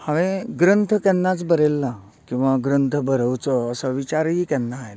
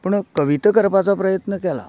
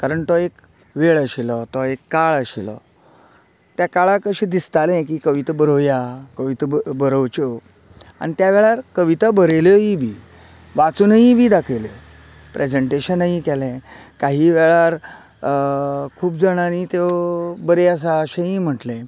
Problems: none marked